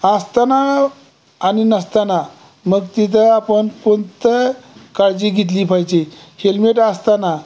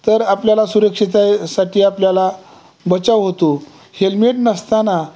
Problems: constant background noise, background conversations at intervals